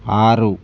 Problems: none marked